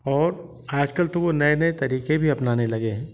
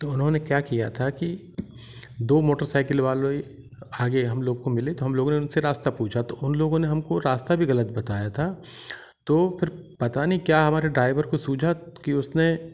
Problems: none marked